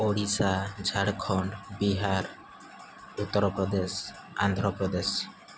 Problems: constant background noise